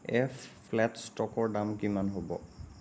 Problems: constant background noise, low volume